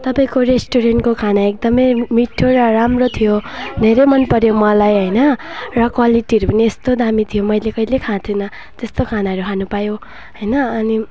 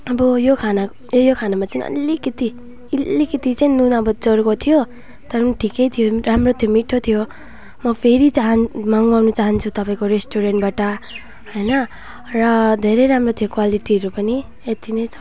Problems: none marked